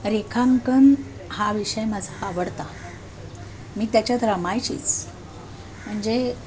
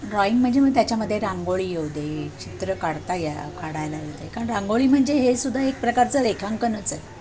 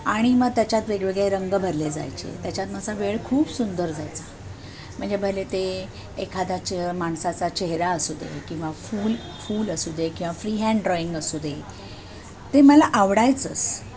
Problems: constant background noise, background conversations at intervals